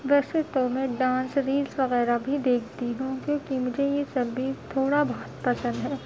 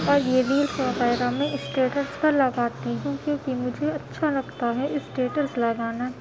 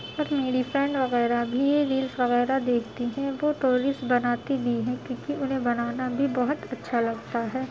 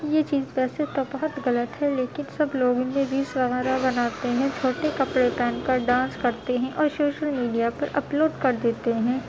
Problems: constant background noise, low volume